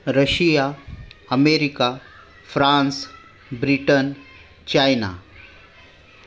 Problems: background conversations at intervals